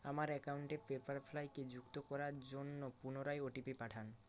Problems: none marked